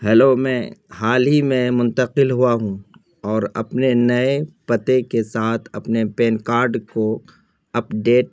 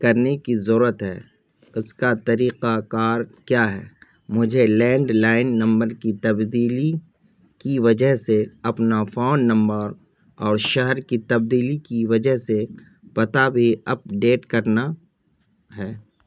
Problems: none marked